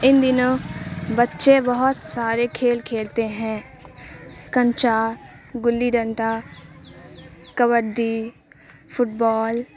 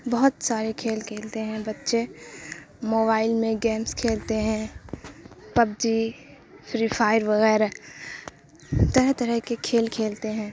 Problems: constant background noise